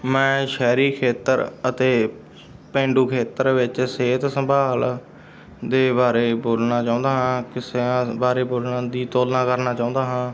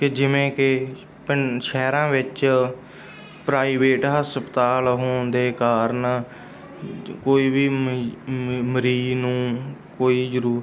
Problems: background sounds at intervals, background conversations at intervals